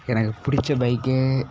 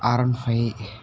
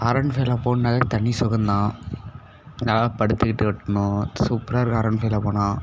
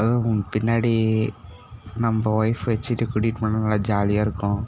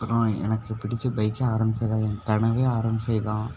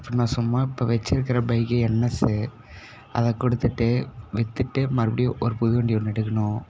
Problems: background sounds at intervals